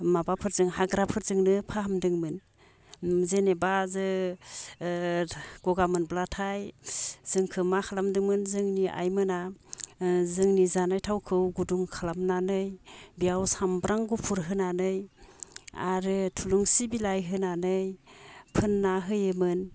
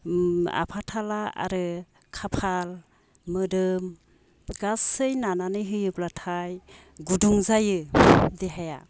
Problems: none marked